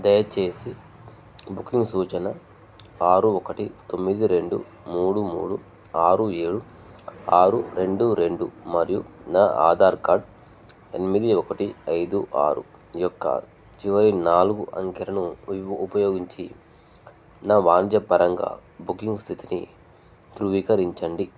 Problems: none marked